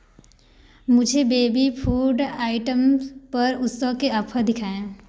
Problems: background sounds at intervals